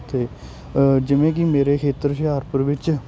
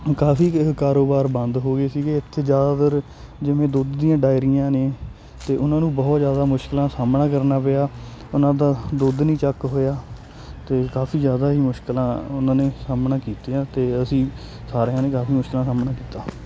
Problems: none marked